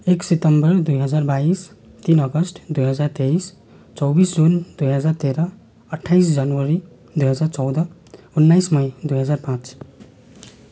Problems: none marked